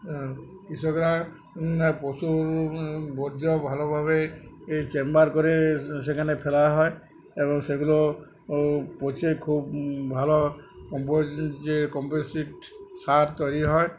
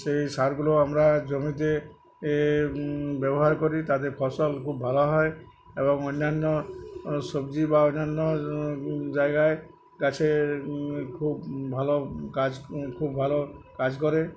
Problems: none marked